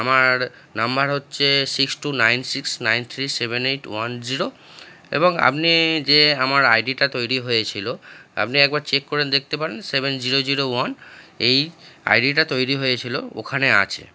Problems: constant background noise